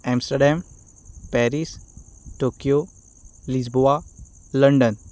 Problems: none marked